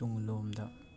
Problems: constant background noise, continuous background conversations, low volume